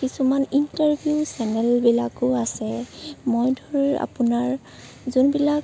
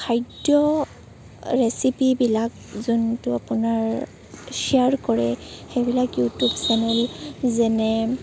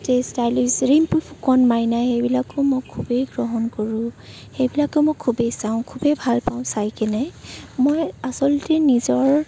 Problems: background sounds at intervals